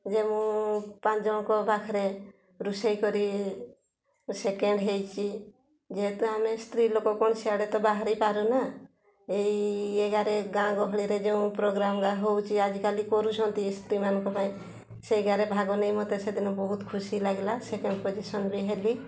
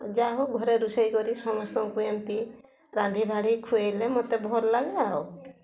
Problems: constant background noise, continuous background conversations